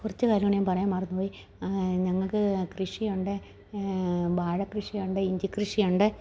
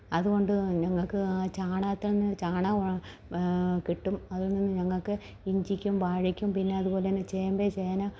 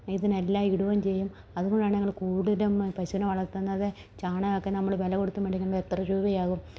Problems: low volume